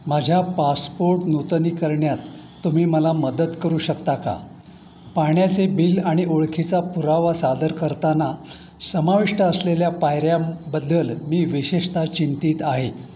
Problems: background sounds at intervals